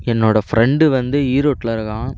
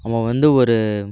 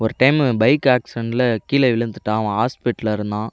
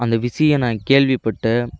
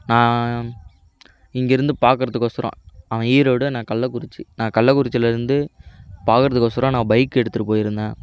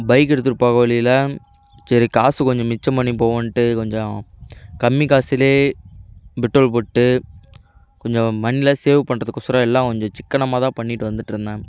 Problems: none marked